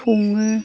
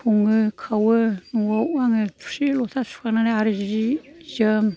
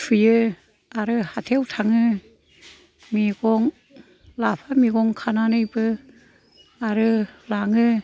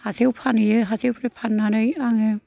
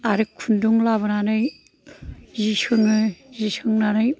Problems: background sounds at intervals